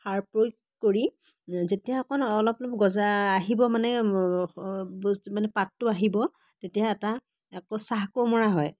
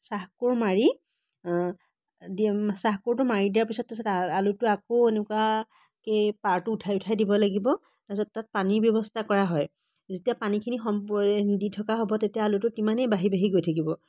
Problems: none marked